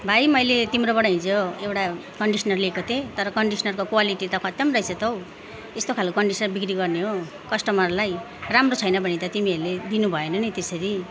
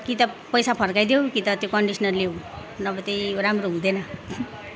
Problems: none marked